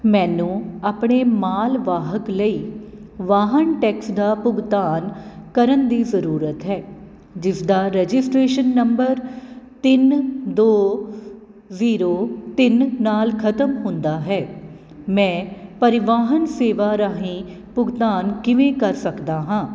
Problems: none marked